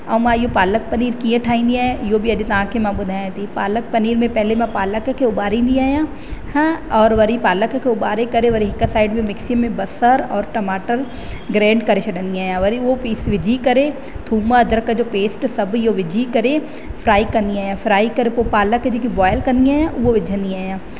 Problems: constant background noise, echo